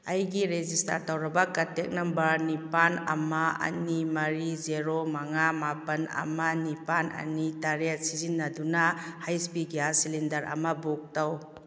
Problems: none marked